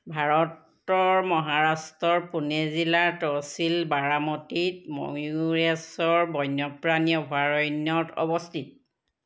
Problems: none marked